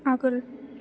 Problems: low volume